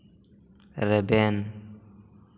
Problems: none marked